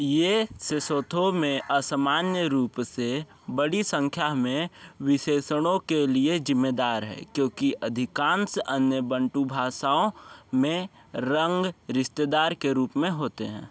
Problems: none marked